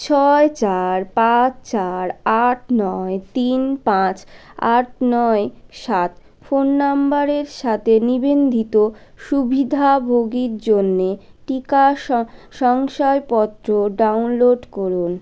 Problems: none marked